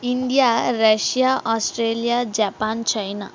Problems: none marked